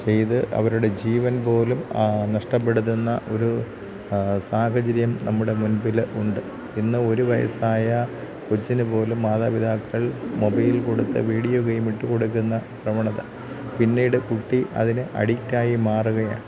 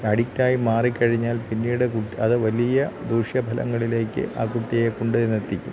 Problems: none marked